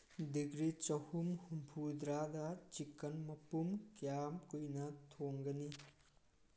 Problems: background sounds at intervals